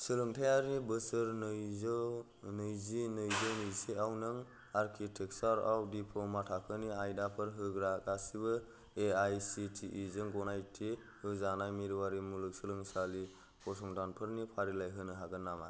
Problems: low volume